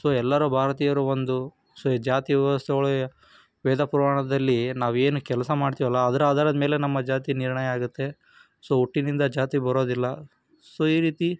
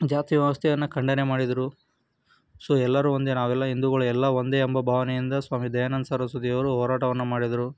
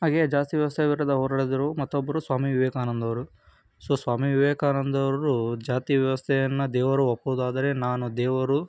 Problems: background sounds at intervals